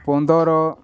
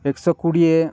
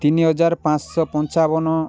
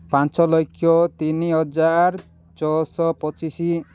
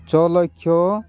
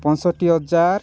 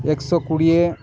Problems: none marked